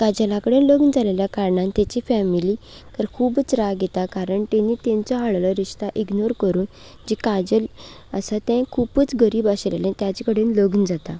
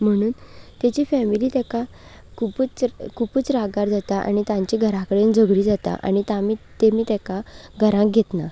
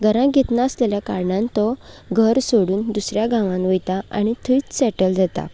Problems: none marked